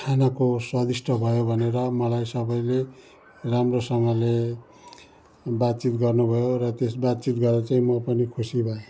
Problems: continuous background conversations